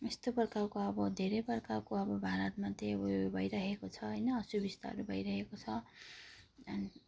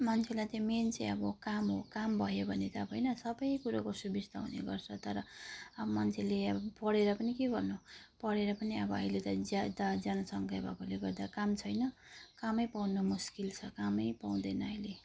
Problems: none marked